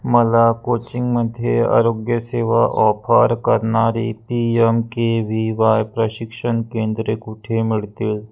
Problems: none marked